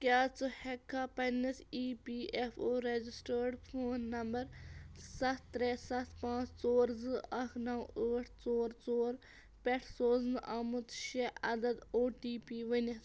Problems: background sounds at intervals